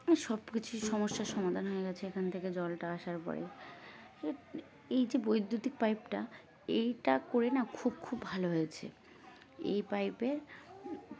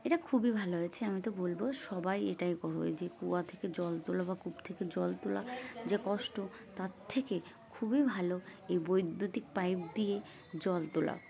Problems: constant background noise, continuous background conversations